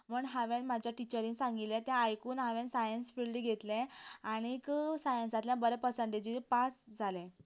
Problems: constant background noise